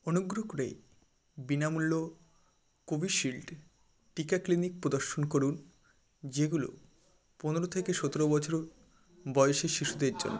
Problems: background conversations at intervals